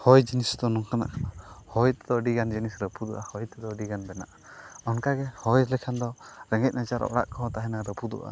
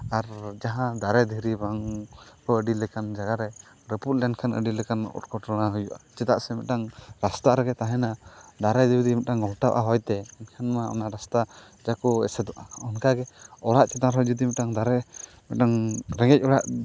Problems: constant background noise